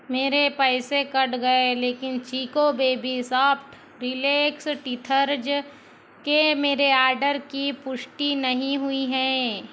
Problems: constant background noise